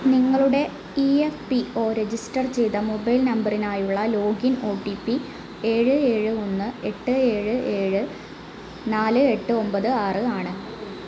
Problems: constant background noise